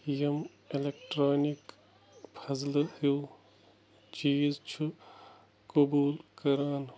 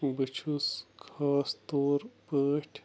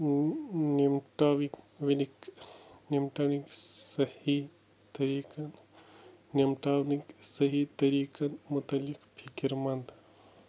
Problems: none marked